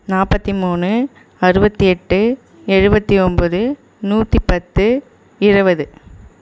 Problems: echo